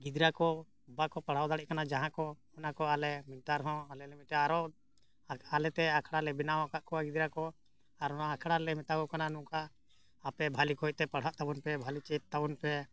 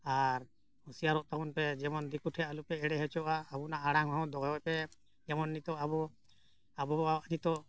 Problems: none marked